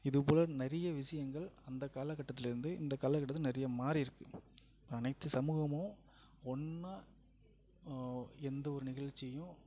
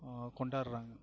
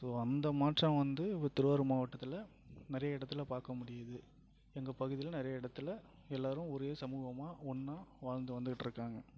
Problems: low volume